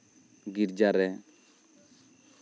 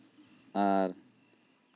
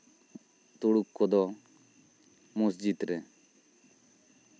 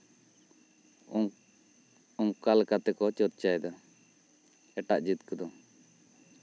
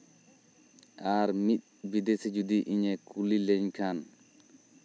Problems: background sounds at intervals